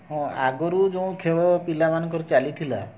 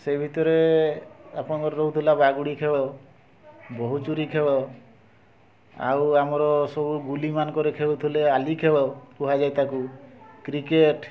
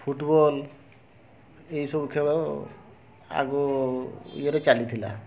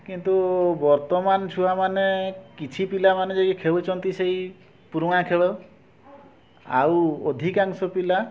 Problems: constant background noise, continuous background conversations